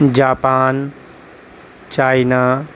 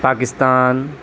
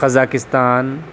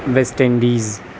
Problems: constant background noise